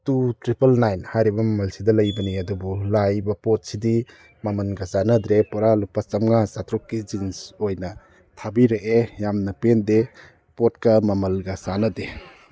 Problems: none marked